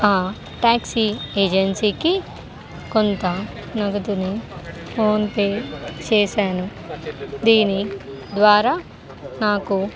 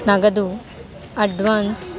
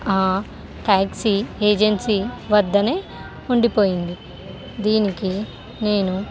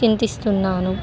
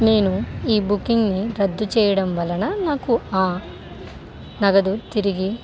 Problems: constant background noise